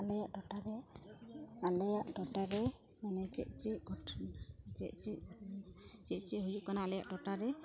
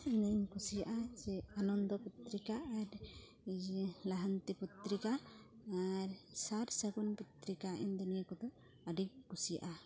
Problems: continuous background conversations